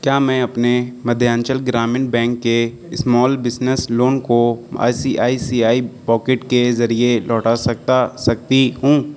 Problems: none marked